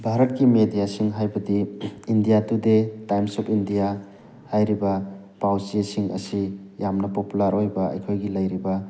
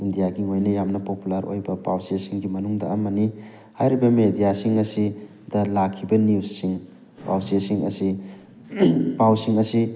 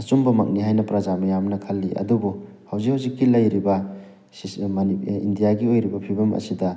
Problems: background sounds at intervals